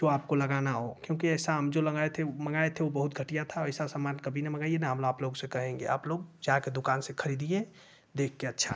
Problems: constant background noise